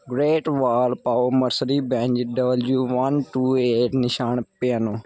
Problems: none marked